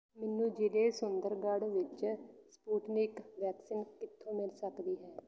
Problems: none marked